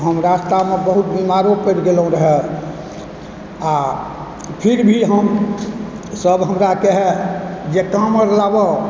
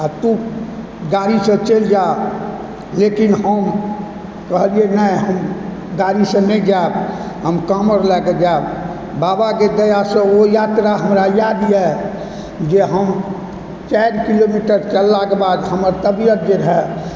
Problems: constant background noise